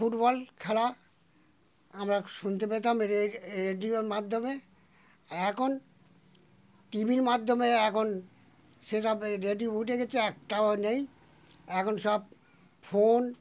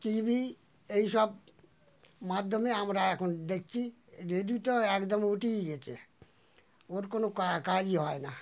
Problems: none marked